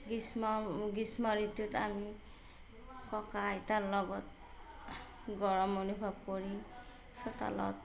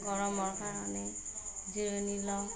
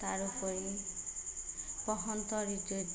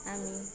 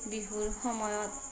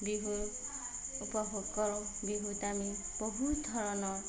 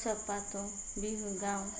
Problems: background sounds at intervals, background conversations at intervals, low volume